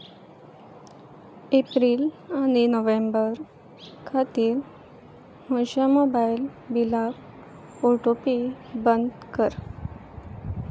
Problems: background sounds at intervals